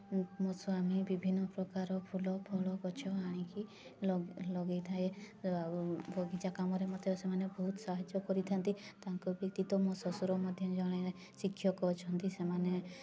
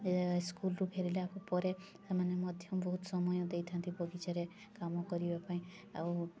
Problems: constant background noise